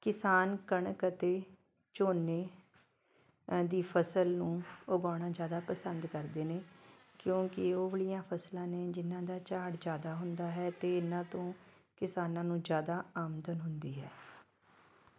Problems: background sounds at intervals